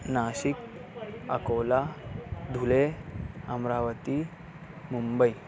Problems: none marked